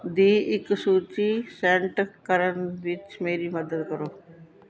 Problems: constant background noise, continuous background conversations